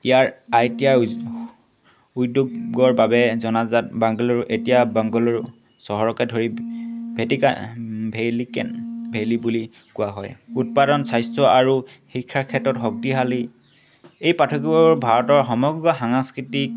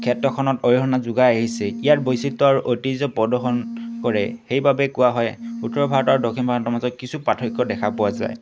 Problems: constant background noise